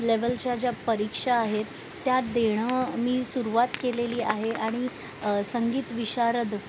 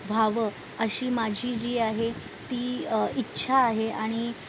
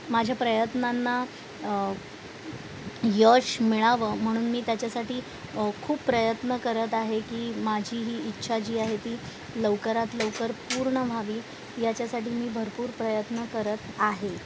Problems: constant background noise, background conversations at intervals